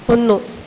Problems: constant background noise